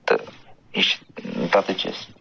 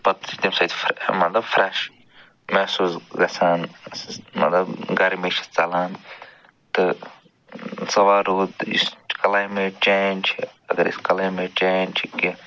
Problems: background sounds at intervals